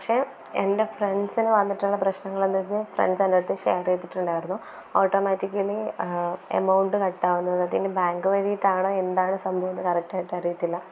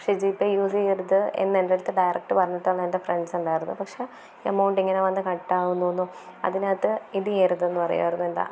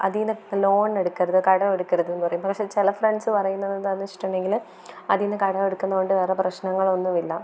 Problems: none marked